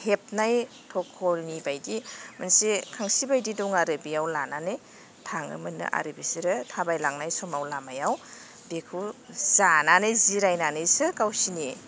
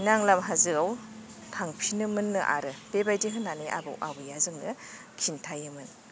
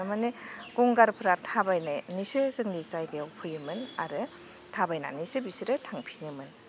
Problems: none marked